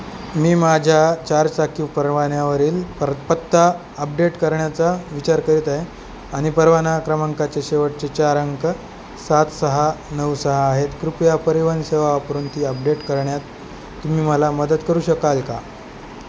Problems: constant background noise